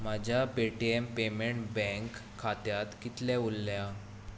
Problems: constant background noise